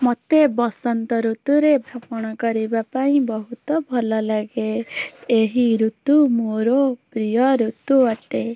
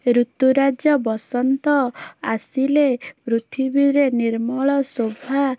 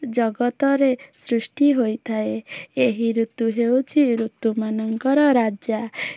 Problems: none marked